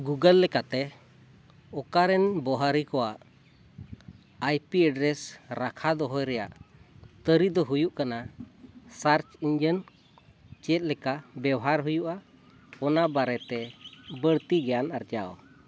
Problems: none marked